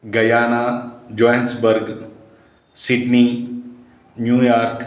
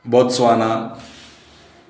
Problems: background sounds at intervals